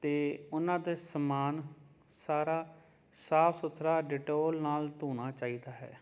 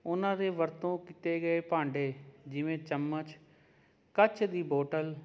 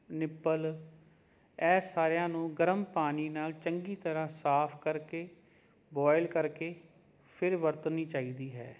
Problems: none marked